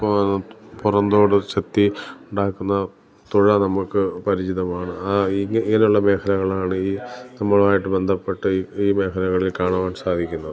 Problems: background sounds at intervals